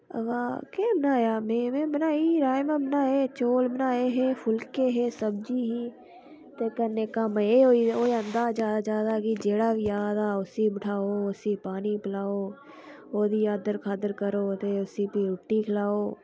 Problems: none marked